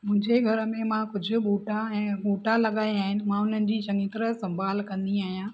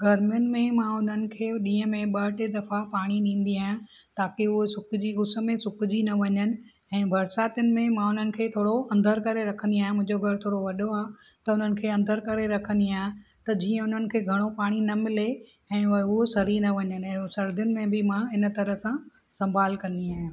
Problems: none marked